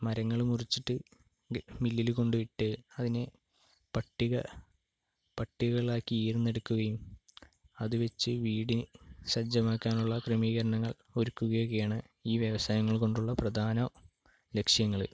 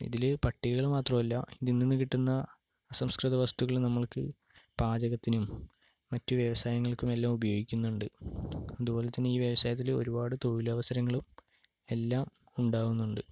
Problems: low volume